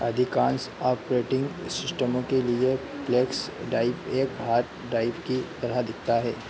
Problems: none marked